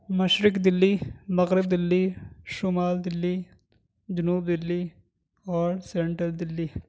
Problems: none marked